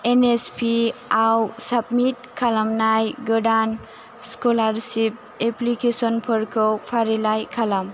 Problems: constant background noise